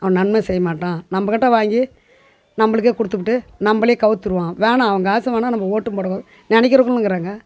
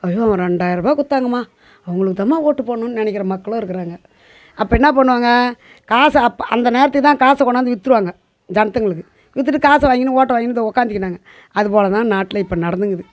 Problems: background sounds at intervals